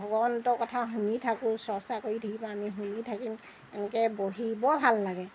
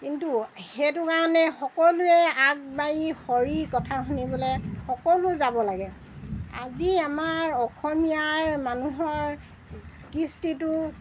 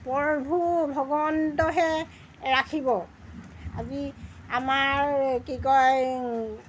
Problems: background sounds at intervals